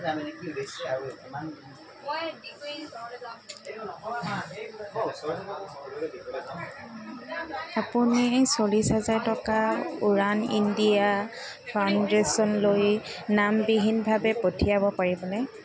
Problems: constant background noise, continuous background conversations